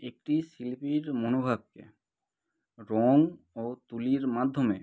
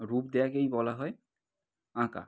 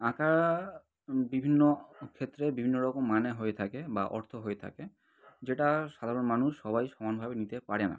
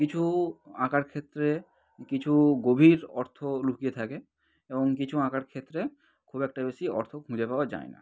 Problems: none marked